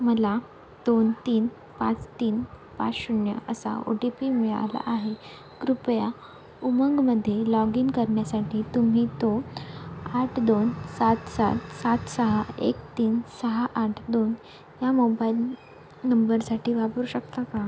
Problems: constant background noise